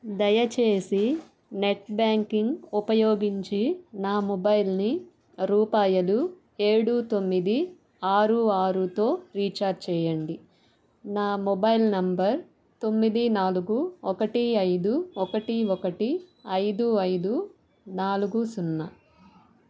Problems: none marked